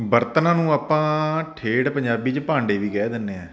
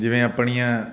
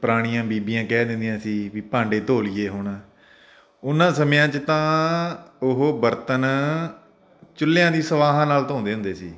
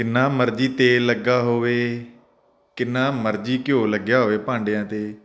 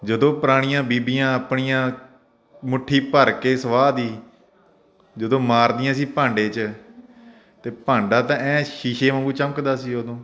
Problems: constant background noise